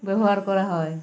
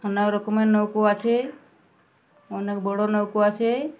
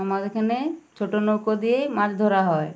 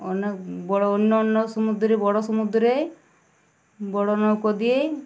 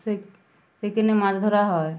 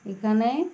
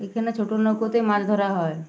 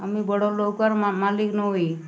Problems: none marked